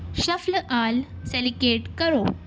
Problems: constant background noise